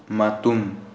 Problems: low volume